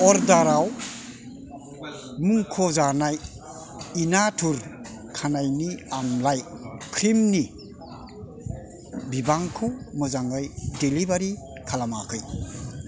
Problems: background sounds at intervals, background conversations at intervals